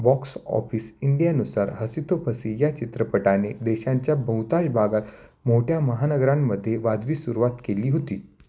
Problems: constant background noise